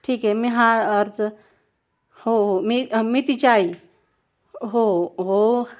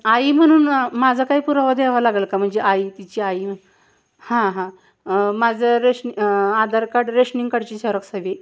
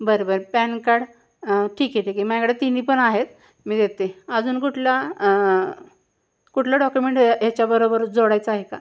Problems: constant background noise